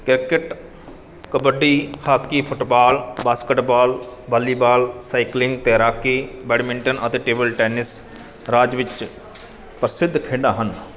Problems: none marked